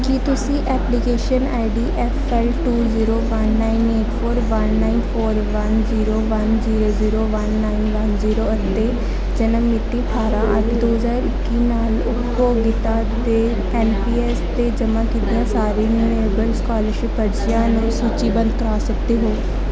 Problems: constant background noise